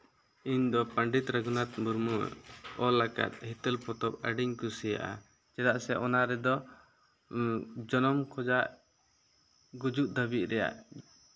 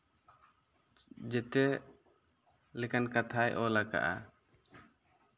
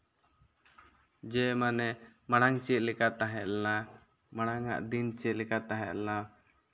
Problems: none marked